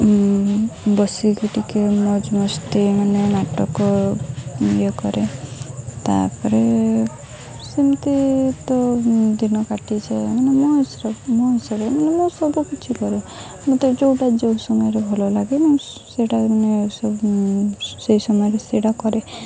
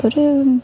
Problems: constant background noise, continuous background conversations